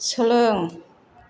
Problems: constant background noise